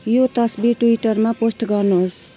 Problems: constant background noise